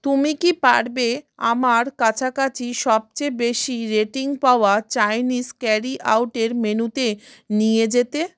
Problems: none marked